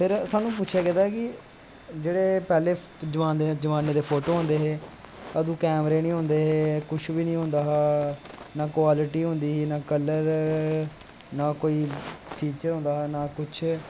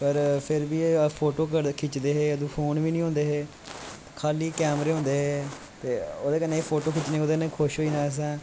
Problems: constant background noise